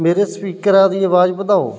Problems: background sounds at intervals